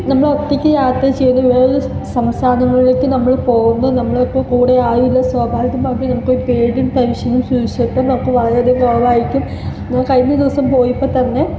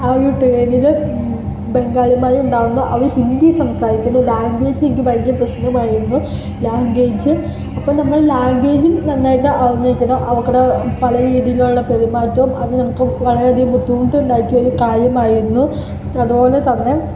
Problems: constant background noise, low volume